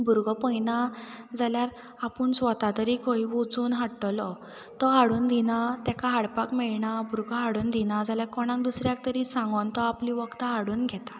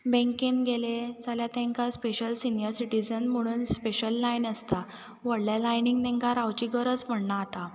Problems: background sounds at intervals